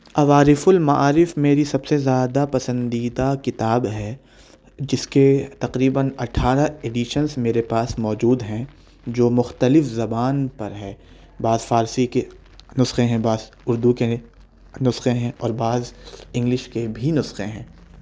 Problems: none marked